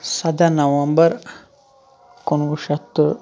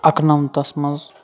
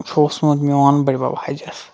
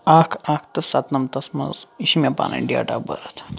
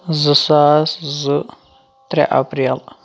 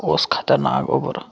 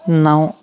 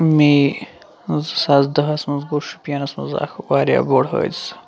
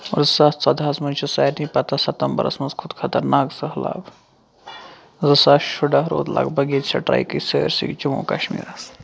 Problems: constant background noise